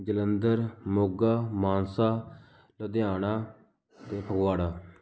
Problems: background sounds at intervals